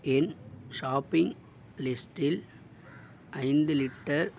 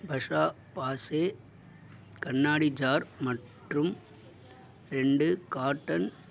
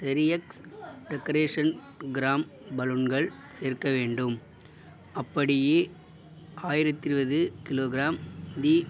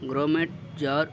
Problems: background sounds at intervals